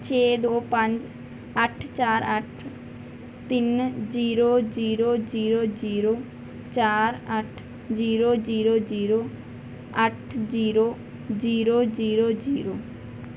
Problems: background sounds at intervals